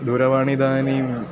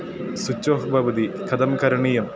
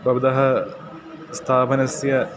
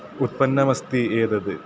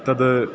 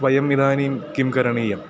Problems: constant background noise